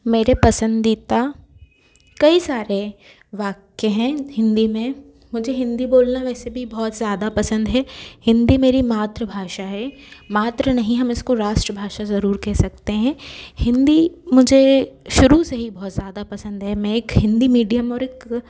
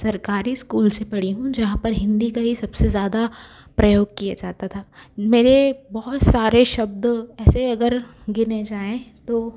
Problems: background sounds at intervals